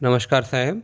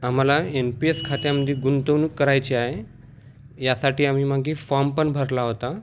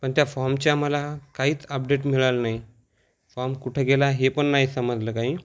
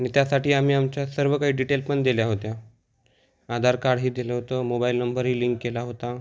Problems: none marked